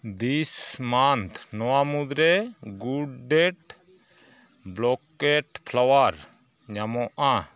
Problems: background sounds at intervals, continuous background conversations